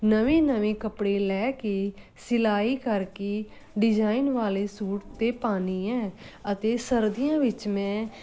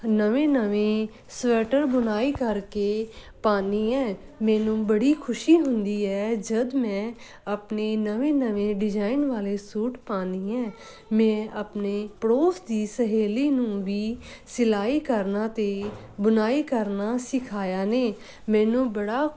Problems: none marked